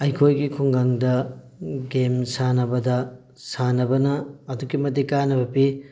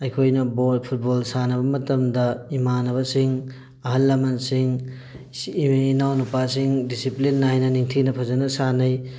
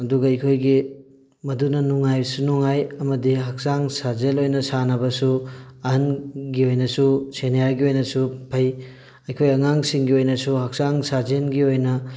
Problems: background sounds at intervals